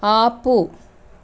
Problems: constant background noise